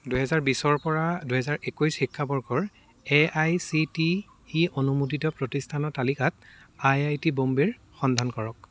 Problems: background sounds at intervals